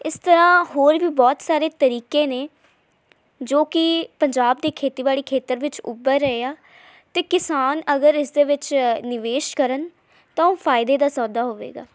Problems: background sounds at intervals